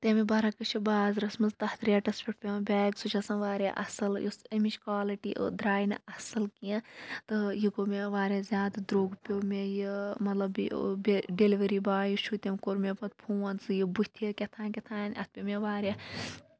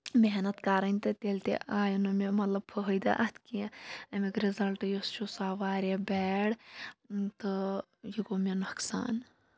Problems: low volume